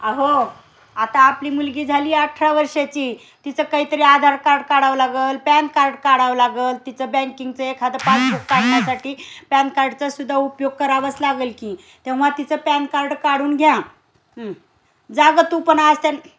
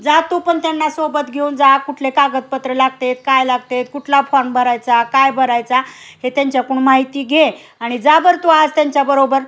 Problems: constant background noise